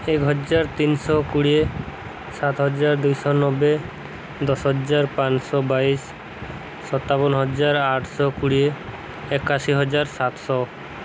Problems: none marked